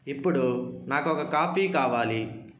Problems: background sounds at intervals